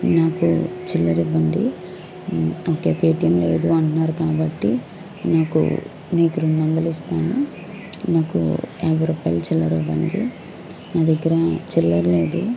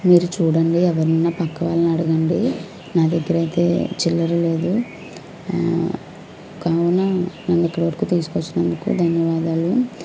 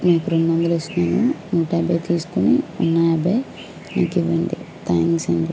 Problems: background sounds at intervals